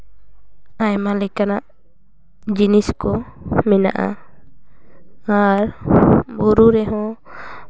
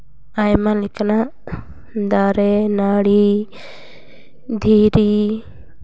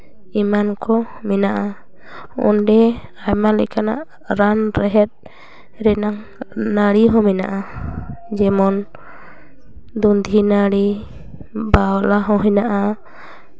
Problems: none marked